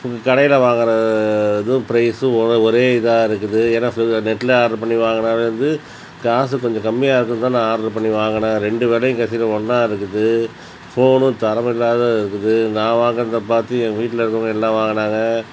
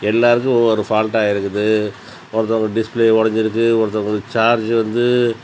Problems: none marked